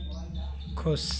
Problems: none marked